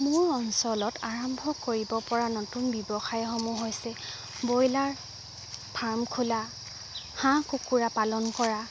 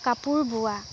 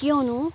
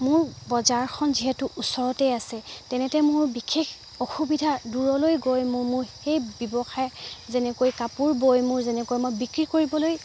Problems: background sounds at intervals